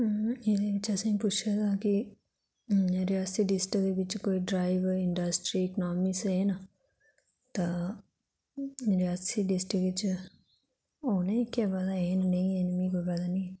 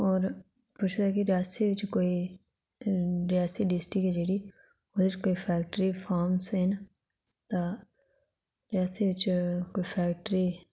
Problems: low volume